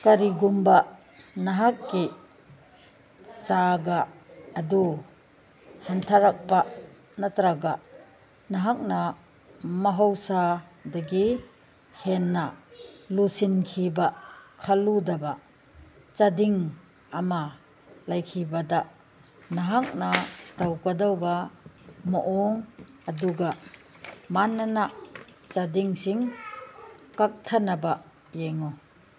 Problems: background sounds at intervals